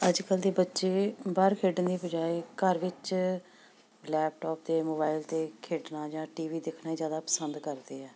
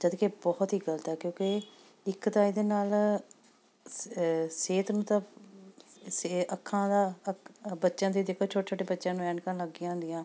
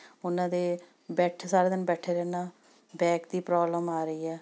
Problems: background sounds at intervals